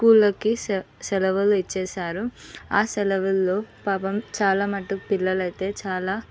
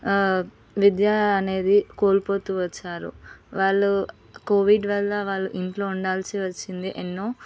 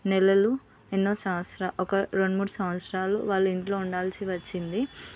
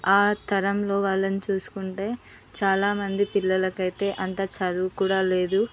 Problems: background sounds at intervals